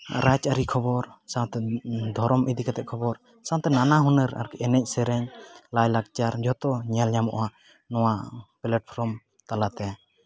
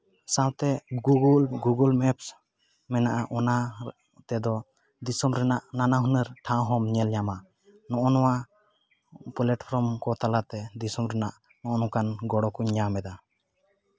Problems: none marked